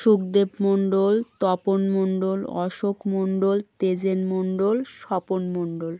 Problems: background sounds at intervals